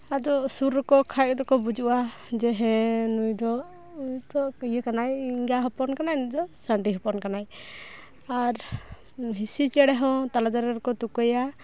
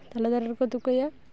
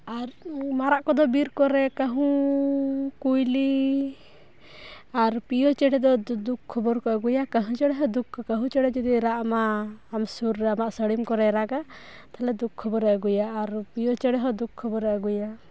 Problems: none marked